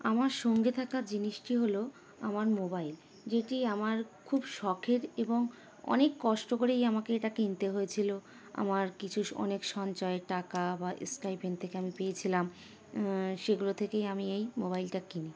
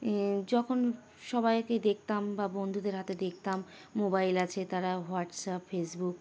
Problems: constant background noise